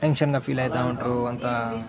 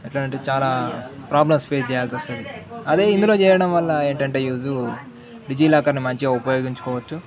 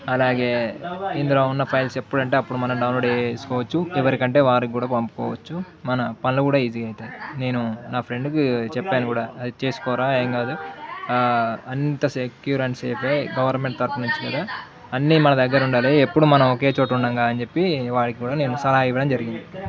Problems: continuous background conversations